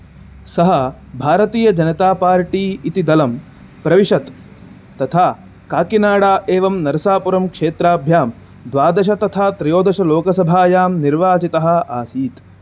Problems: constant background noise